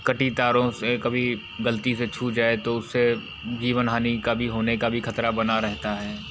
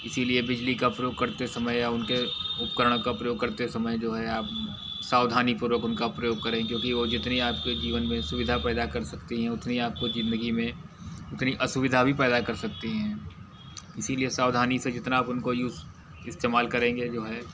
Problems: none marked